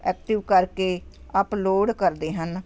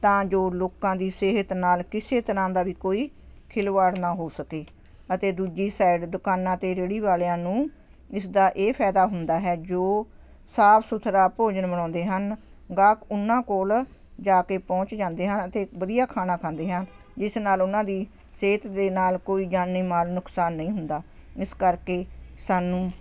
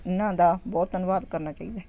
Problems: constant background noise